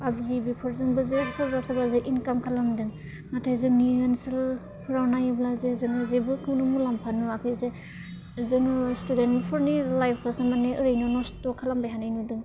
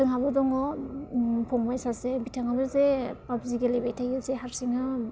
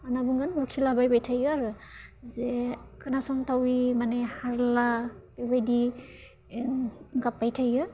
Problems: constant background noise